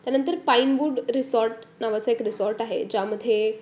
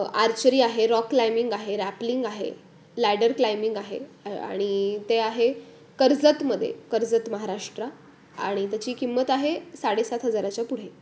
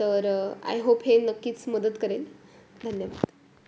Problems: constant background noise